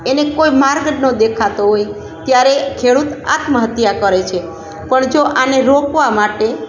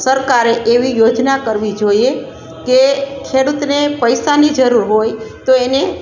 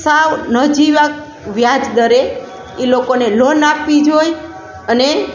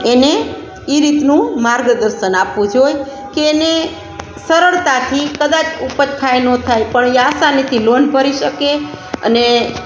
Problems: constant background noise